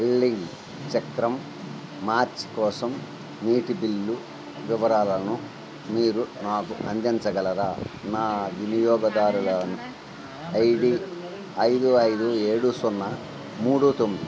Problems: constant background noise